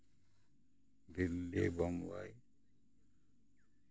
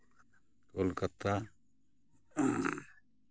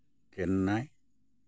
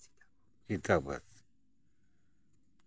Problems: constant background noise